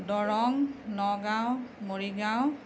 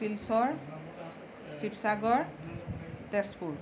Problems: constant background noise, background conversations at intervals